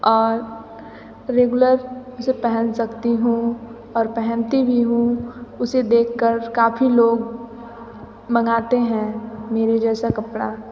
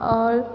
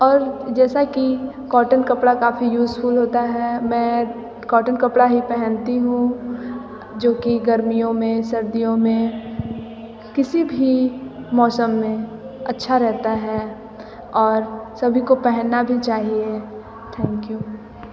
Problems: background conversations at intervals, echo